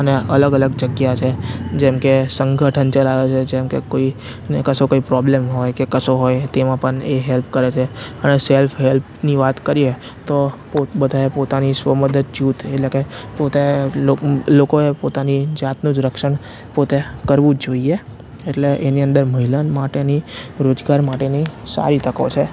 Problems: constant background noise